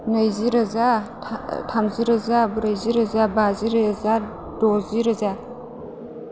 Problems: constant background noise